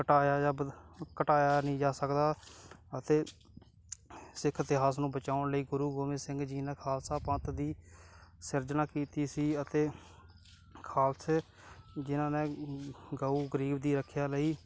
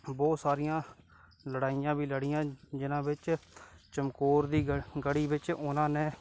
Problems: background sounds at intervals